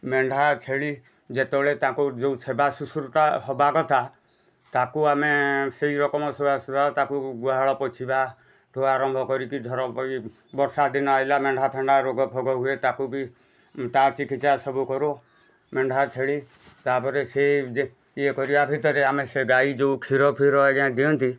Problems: none marked